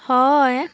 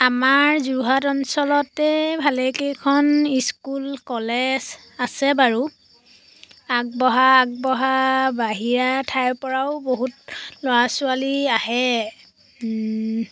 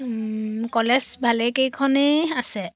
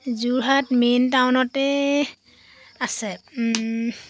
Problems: constant background noise